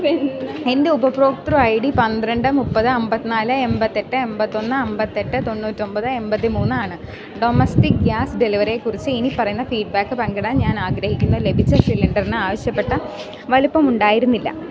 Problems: none marked